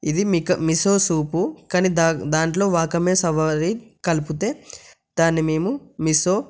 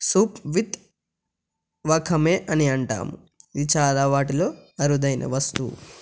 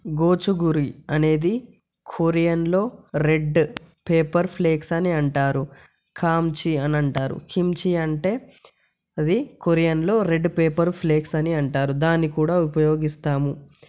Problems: none marked